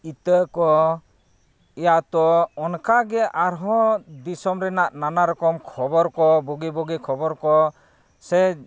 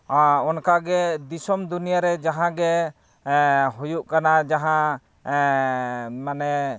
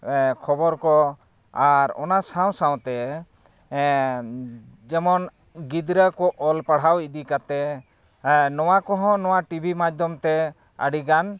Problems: none marked